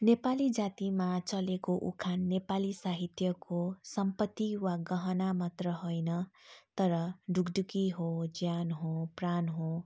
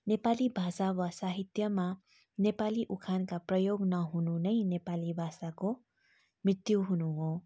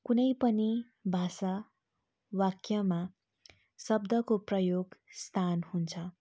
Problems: none marked